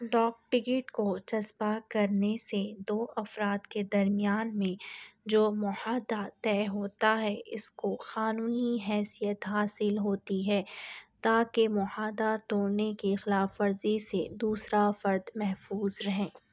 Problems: none marked